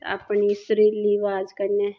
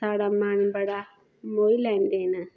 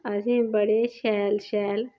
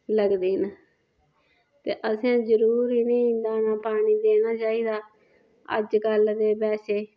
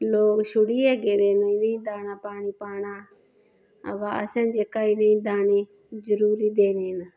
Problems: none marked